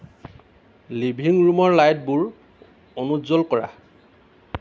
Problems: constant background noise